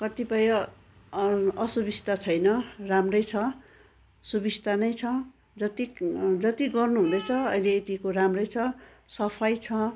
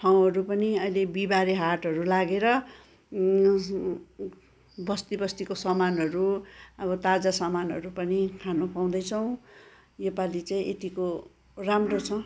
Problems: continuous background conversations